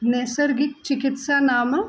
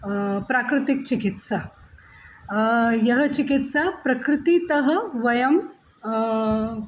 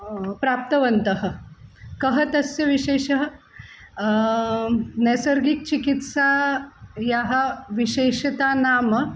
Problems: constant background noise